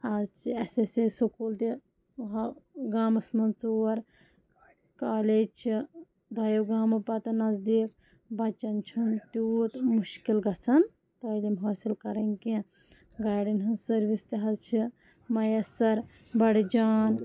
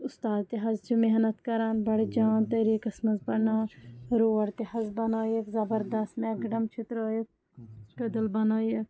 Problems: background sounds at intervals, low volume